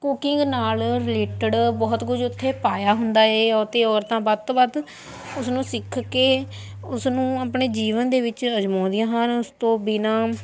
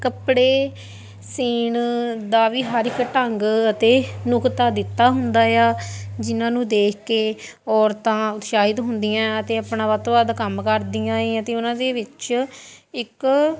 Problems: background sounds at intervals, background conversations at intervals